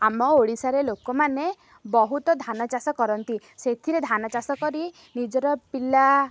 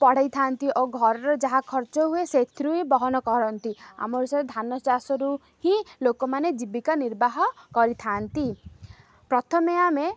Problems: none marked